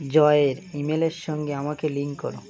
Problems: constant background noise